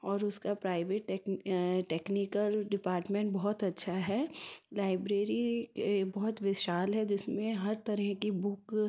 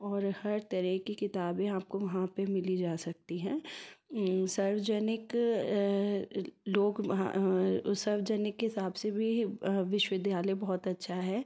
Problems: none marked